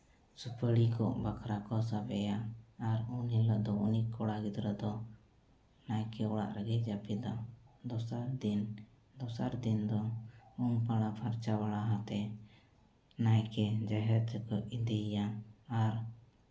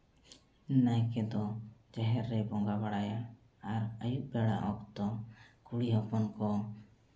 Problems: background sounds at intervals, low volume